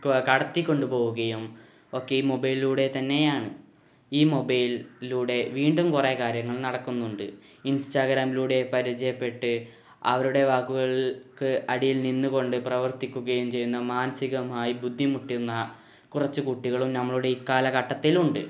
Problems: background sounds at intervals